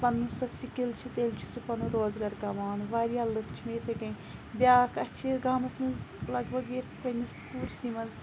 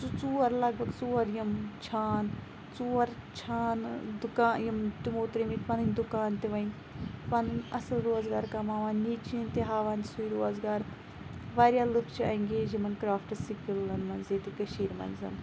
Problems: background sounds at intervals